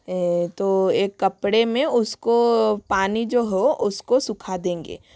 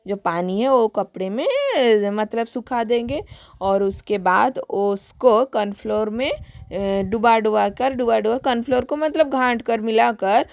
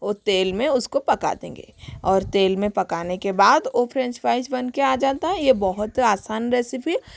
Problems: constant background noise